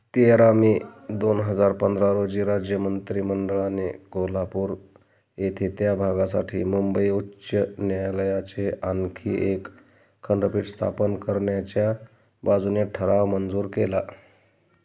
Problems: none marked